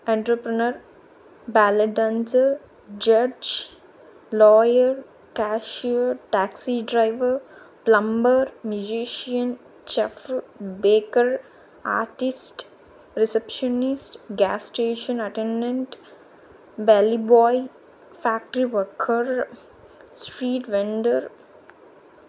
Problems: constant background noise